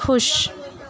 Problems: constant background noise